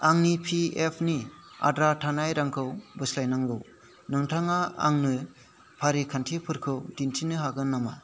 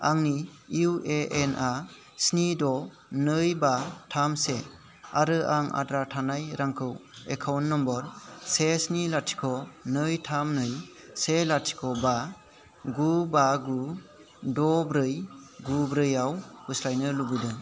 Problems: constant background noise